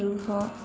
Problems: constant background noise